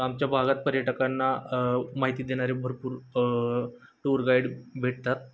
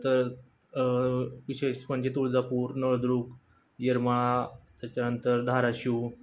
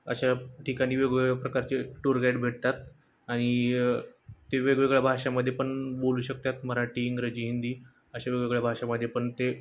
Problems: constant background noise